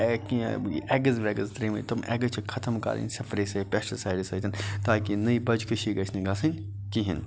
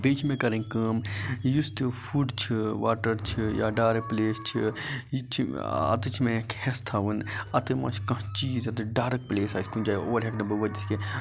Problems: constant background noise, background conversations at intervals